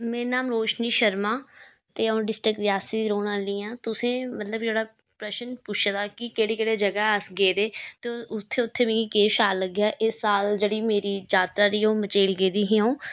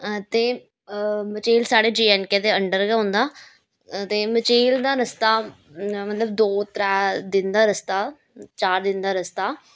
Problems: none marked